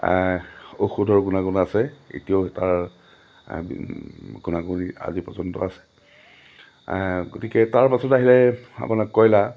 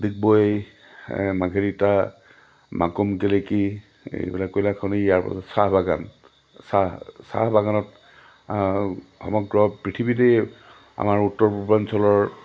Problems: none marked